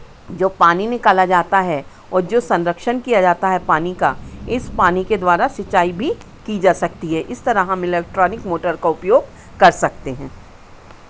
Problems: constant background noise